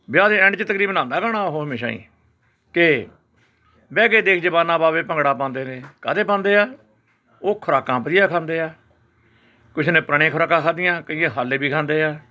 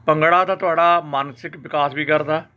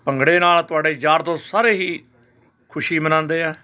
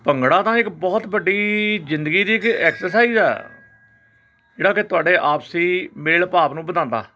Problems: constant background noise, continuous background conversations